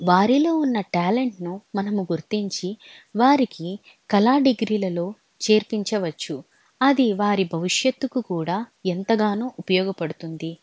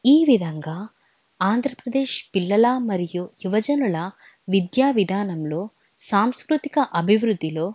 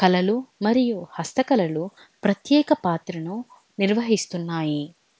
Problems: none marked